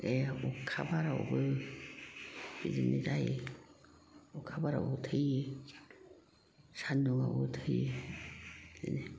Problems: background sounds at intervals, background conversations at intervals